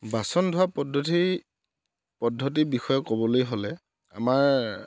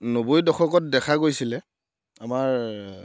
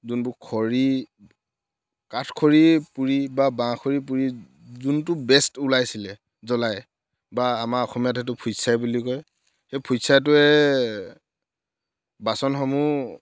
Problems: background sounds at intervals